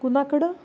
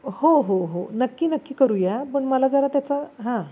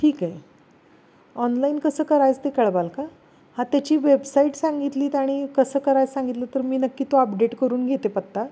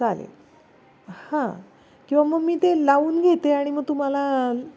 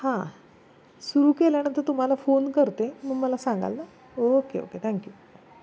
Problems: none marked